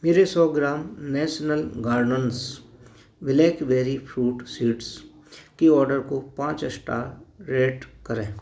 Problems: background sounds at intervals